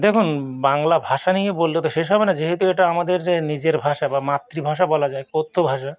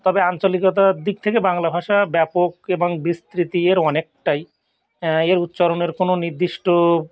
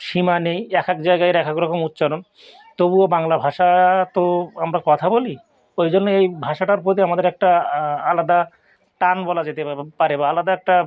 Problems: background sounds at intervals